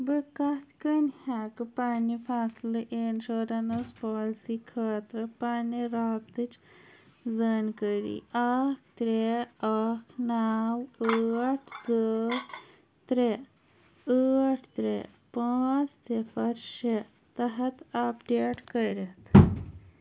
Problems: none marked